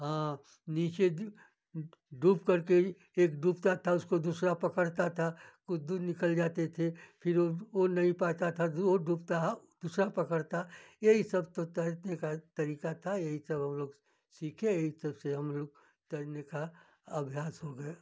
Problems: none marked